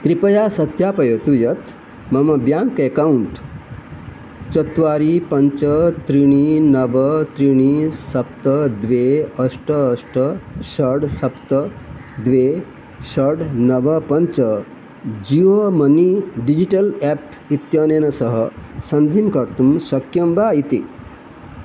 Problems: none marked